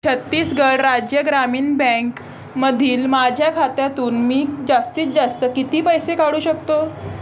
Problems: none marked